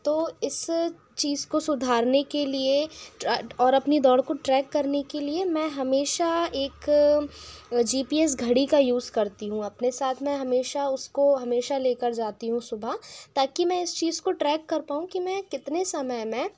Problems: constant background noise